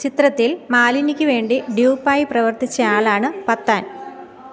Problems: background sounds at intervals